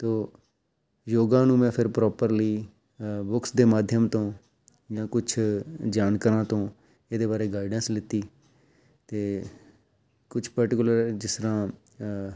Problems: none marked